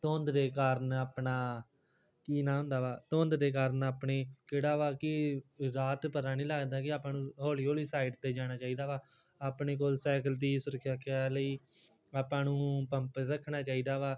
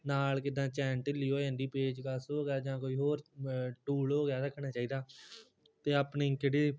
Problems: background sounds at intervals